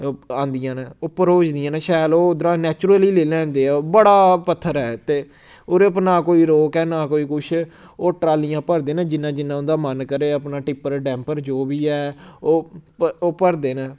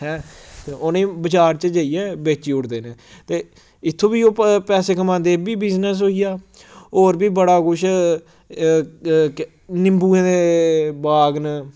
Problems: background sounds at intervals